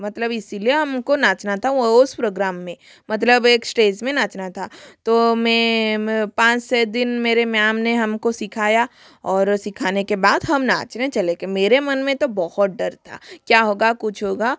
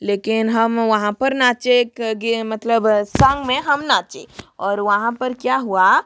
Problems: constant background noise